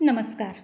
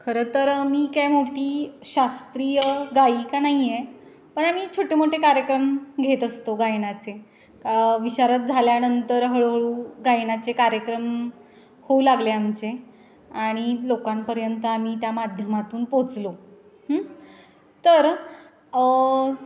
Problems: constant background noise, background conversations at intervals, echo